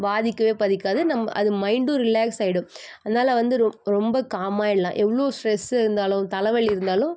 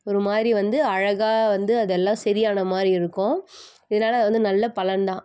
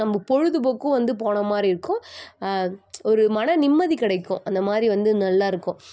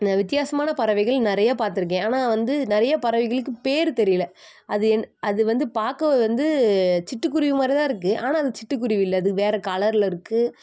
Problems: constant background noise